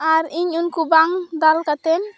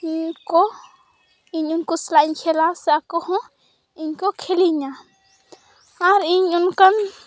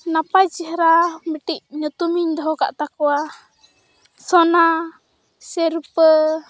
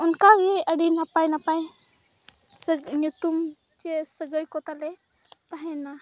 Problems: background sounds at intervals, background conversations at intervals